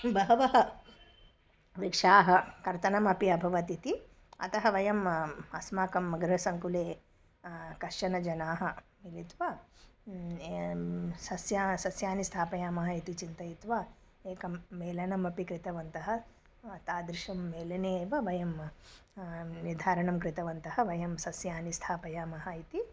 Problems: none marked